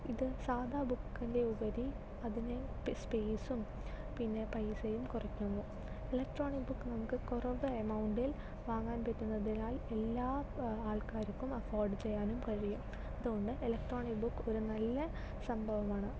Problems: low volume